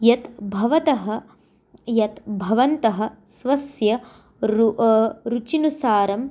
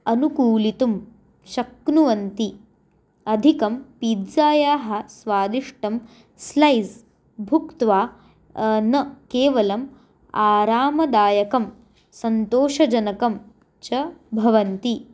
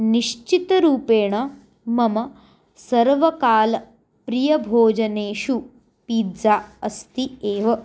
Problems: none marked